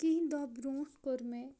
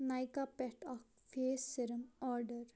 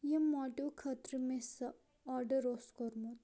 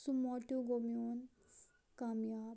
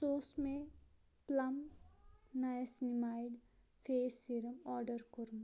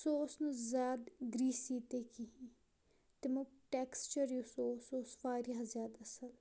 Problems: low volume